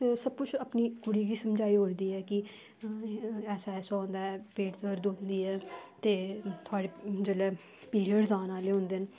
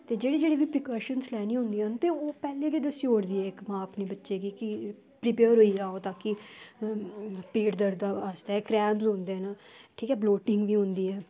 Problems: background sounds at intervals